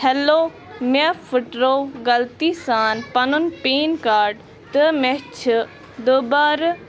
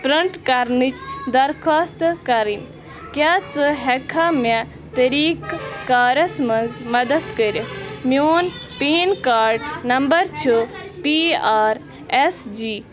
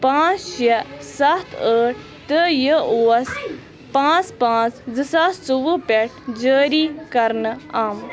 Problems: constant background noise, continuous background conversations